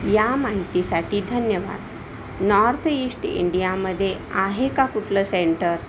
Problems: constant background noise